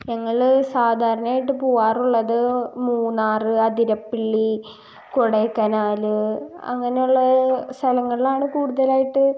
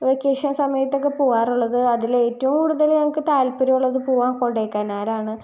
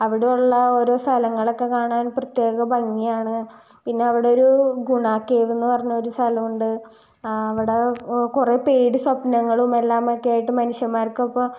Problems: none marked